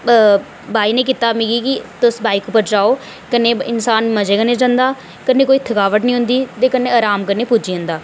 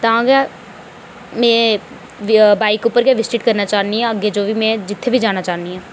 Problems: none marked